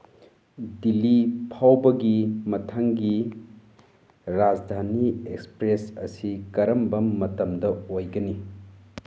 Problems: none marked